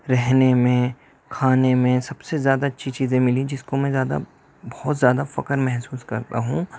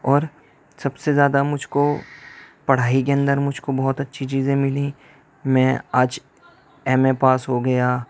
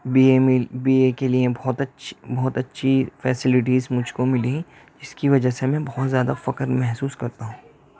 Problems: background sounds at intervals